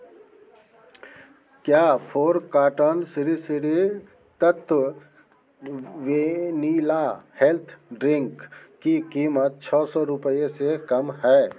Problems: none marked